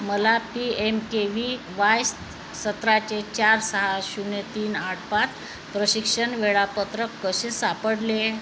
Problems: constant background noise